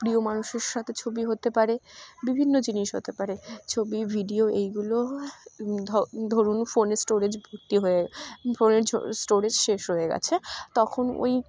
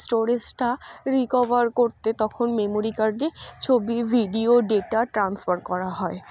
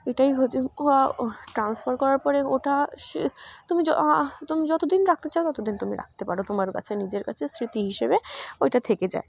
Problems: none marked